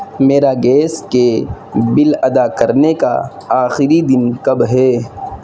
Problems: constant background noise